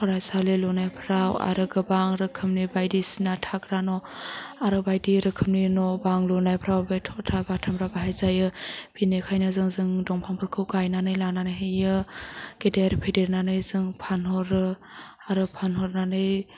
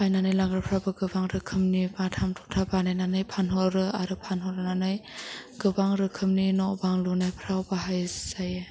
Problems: background sounds at intervals